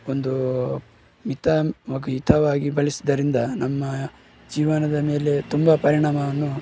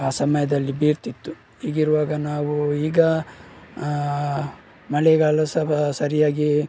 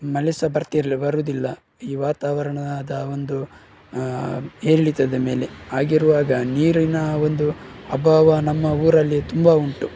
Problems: background sounds at intervals